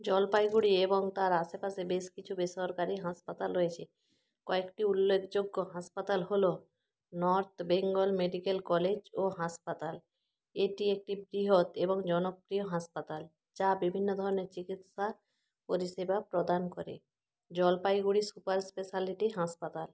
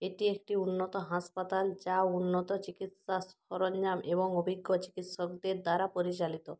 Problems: none marked